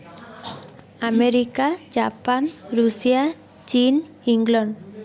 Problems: background conversations at intervals